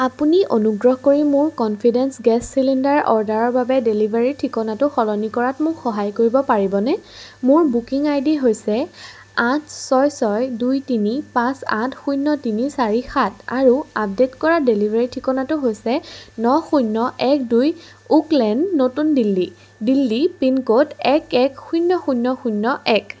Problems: background sounds at intervals